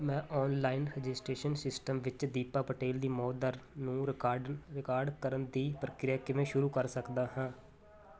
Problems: none marked